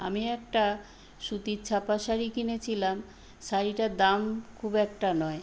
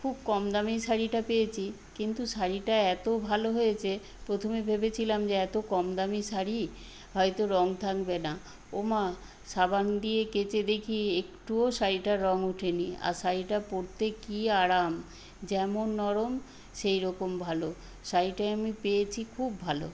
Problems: background sounds at intervals